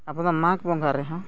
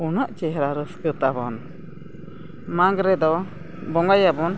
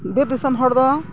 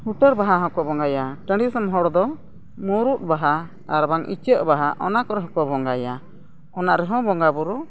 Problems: background sounds at intervals